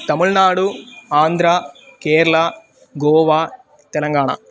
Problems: constant background noise